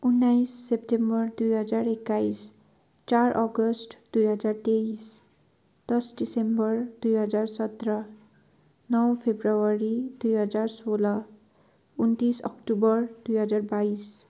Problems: background sounds at intervals